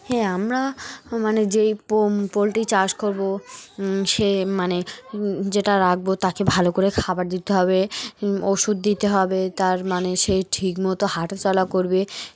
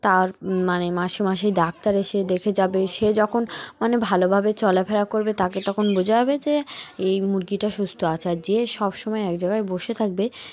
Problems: background sounds at intervals, background conversations at intervals